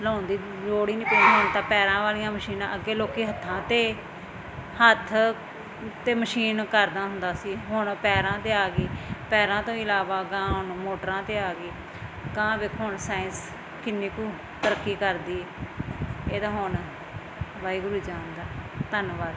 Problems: constant background noise